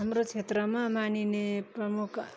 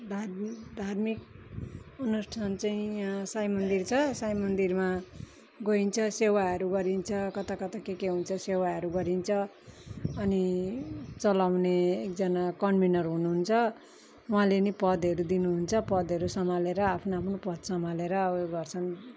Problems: background sounds at intervals